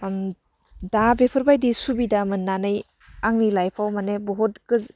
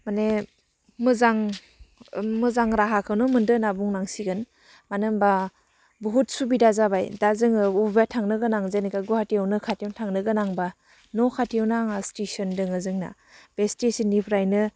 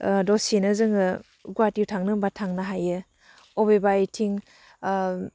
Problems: low volume